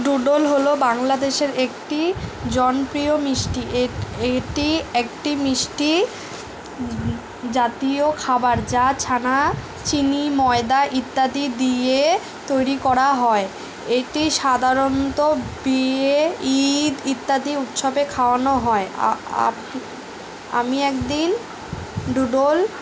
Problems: background sounds at intervals